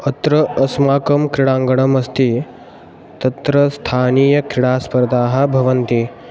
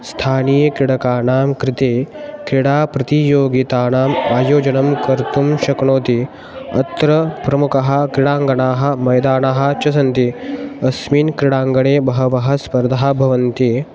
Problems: background sounds at intervals